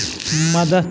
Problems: constant background noise